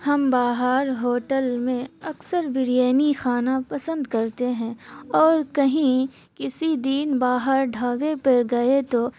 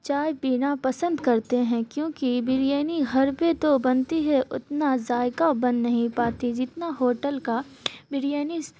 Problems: constant background noise